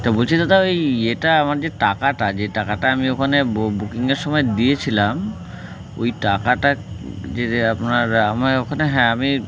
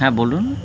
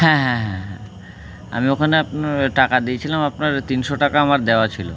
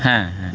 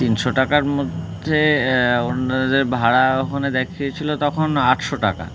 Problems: constant background noise, continuous background conversations